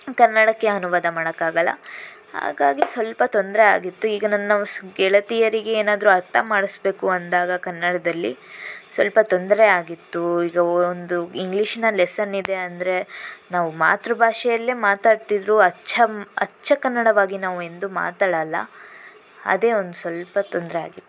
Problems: constant background noise